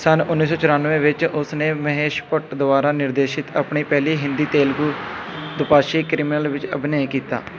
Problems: none marked